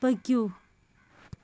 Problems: none marked